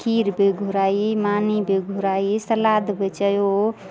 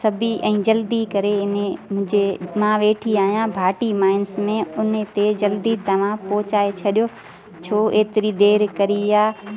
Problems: constant background noise